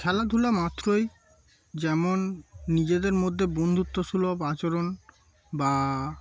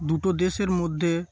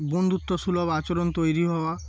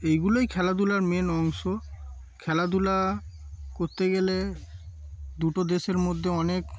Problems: background sounds at intervals